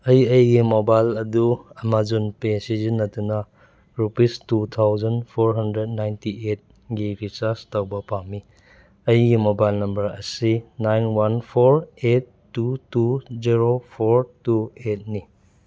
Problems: none marked